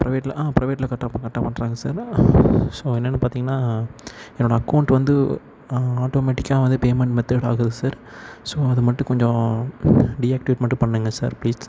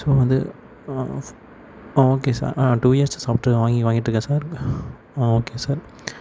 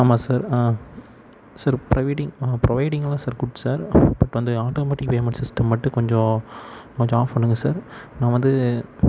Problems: constant background noise